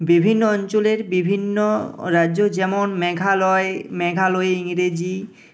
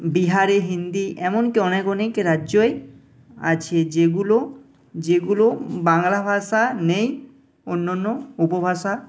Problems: none marked